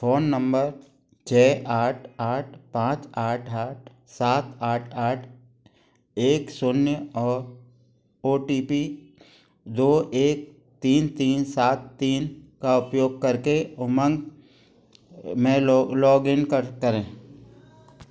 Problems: background sounds at intervals